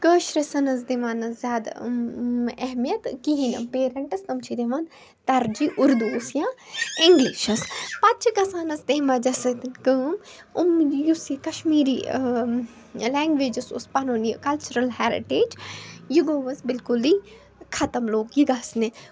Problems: background sounds at intervals, background conversations at intervals